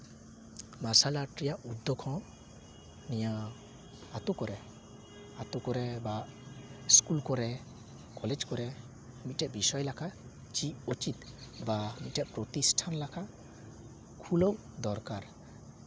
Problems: background sounds at intervals